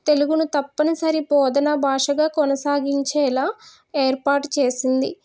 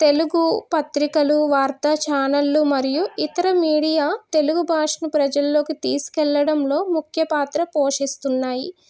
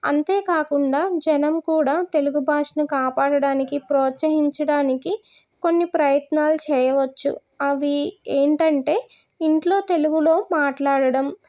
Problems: none marked